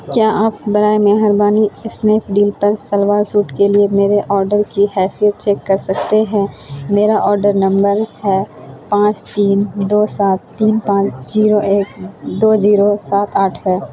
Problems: constant background noise